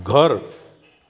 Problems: constant background noise